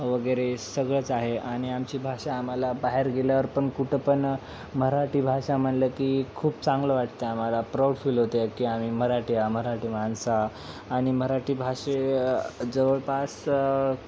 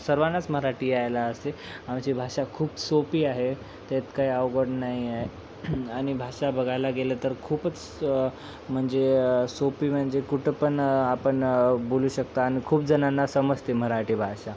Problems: constant background noise